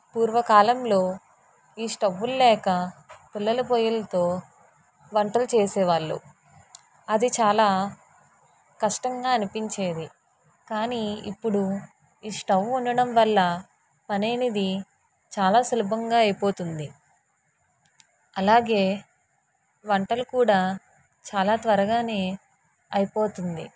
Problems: constant background noise